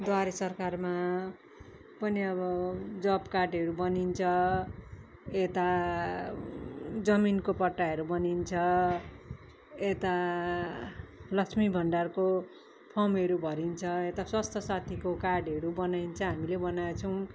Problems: none marked